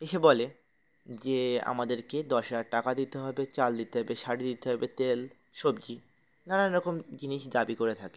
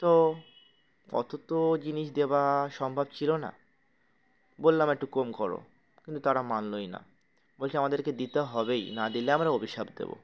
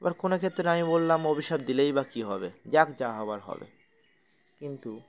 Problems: constant background noise, background conversations at intervals